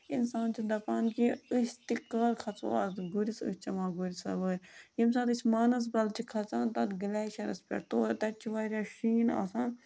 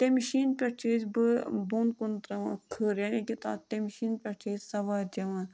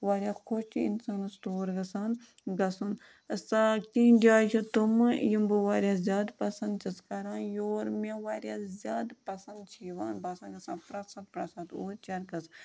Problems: constant background noise